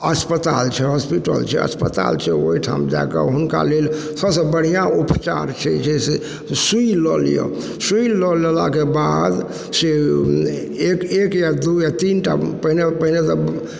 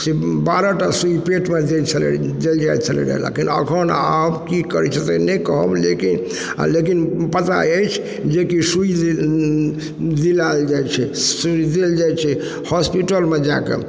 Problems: background sounds at intervals